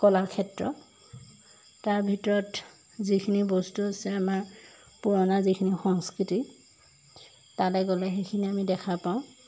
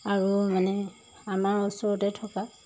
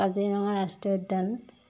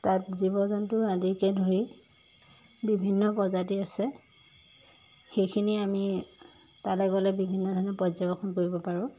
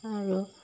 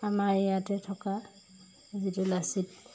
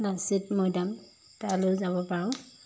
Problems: background sounds at intervals